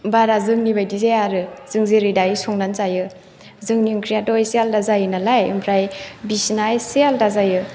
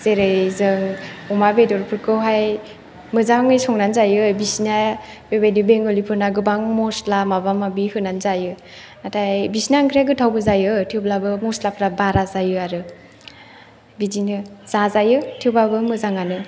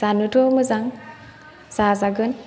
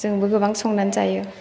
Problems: none marked